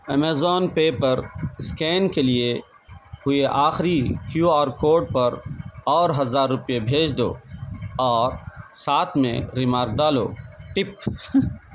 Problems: background sounds at intervals